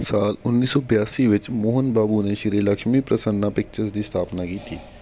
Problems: background sounds at intervals